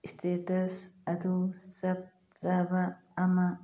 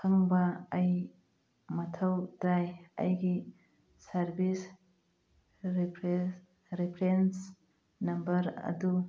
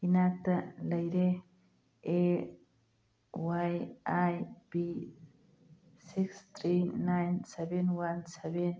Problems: background sounds at intervals